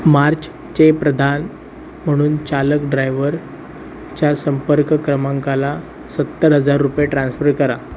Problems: none marked